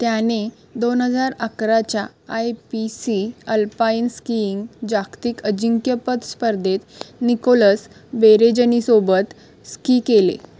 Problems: background sounds at intervals